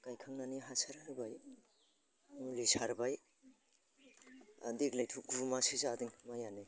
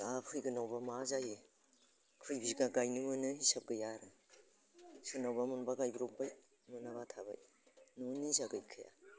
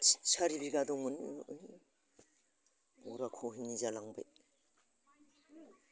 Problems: constant background noise